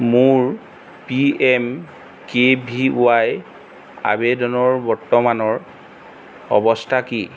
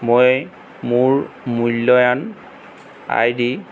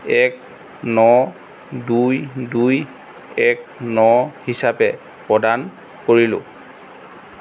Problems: none marked